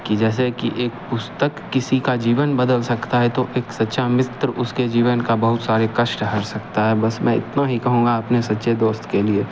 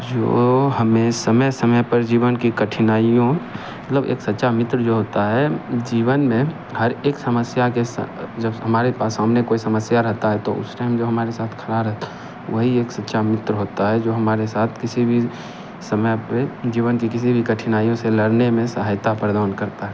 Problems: none marked